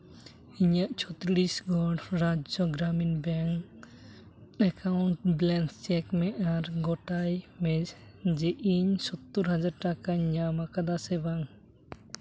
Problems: none marked